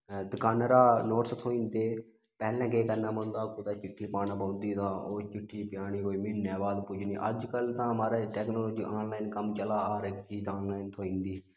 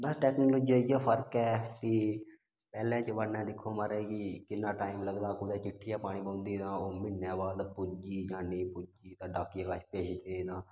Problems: background sounds at intervals